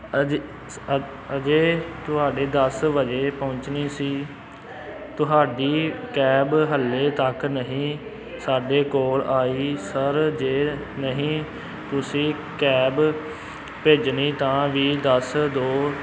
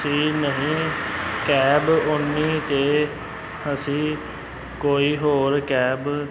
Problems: constant background noise